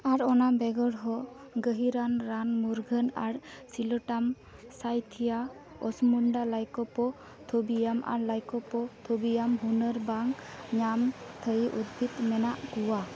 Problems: constant background noise